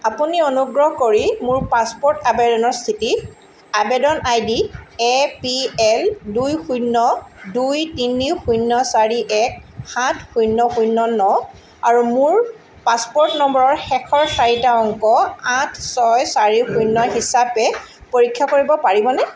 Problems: constant background noise